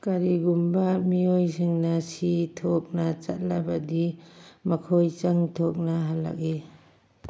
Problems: background sounds at intervals